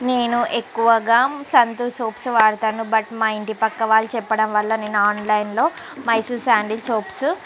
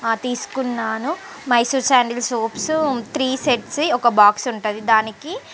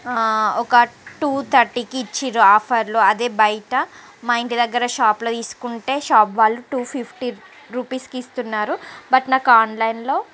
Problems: constant background noise, background conversations at intervals